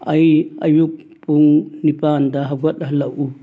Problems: none marked